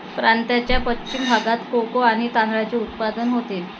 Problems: constant background noise